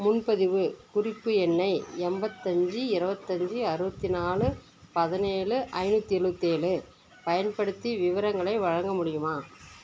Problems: constant background noise, continuous background conversations